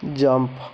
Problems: constant background noise